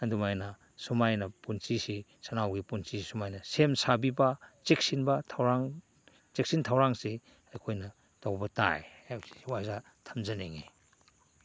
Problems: none marked